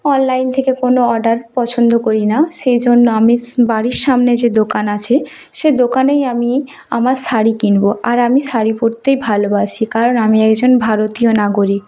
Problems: continuous background conversations